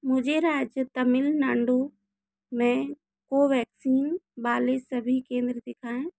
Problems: low volume